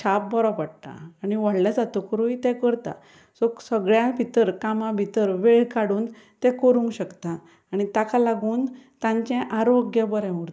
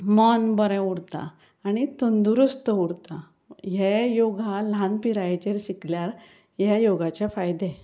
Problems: background sounds at intervals